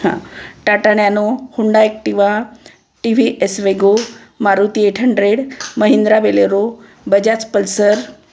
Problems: constant background noise